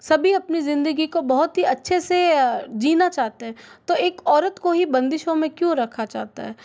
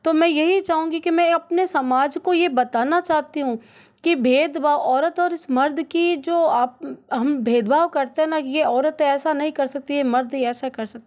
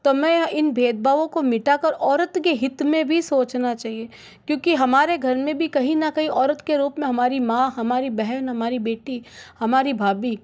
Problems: none marked